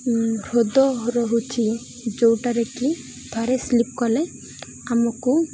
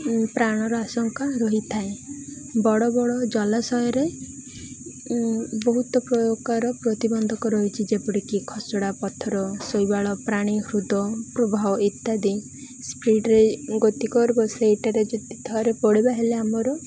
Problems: none marked